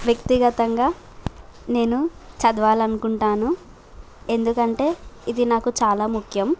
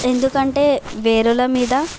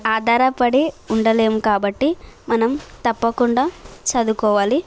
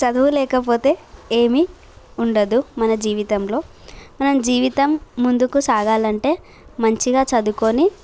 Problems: constant background noise